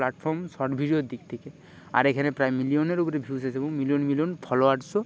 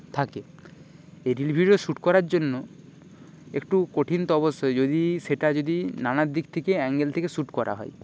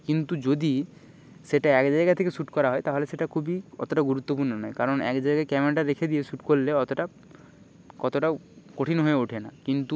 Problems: background sounds at intervals, background conversations at intervals